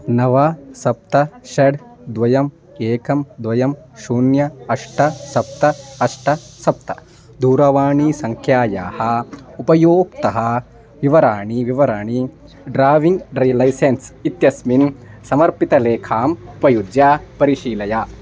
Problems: background conversations at intervals